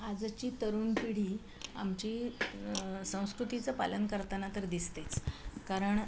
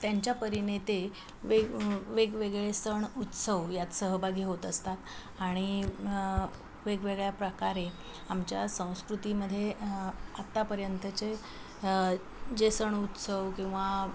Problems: constant background noise, background conversations at intervals